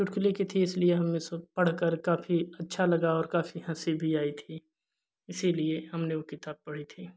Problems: none marked